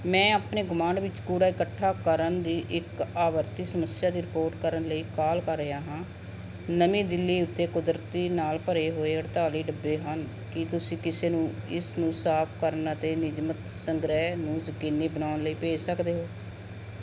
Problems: none marked